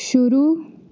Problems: constant background noise